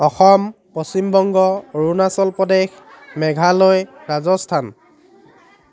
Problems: constant background noise